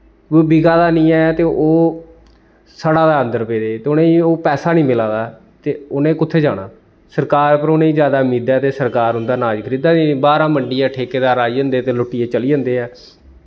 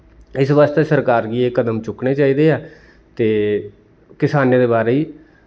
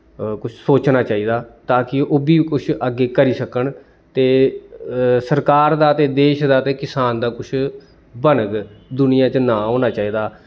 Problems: none marked